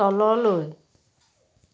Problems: none marked